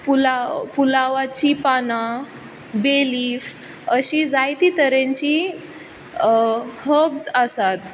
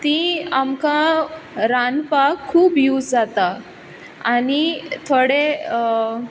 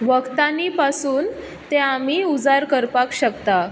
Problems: background sounds at intervals